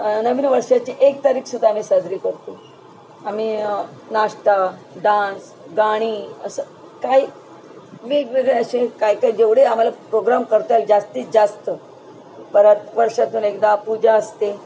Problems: constant background noise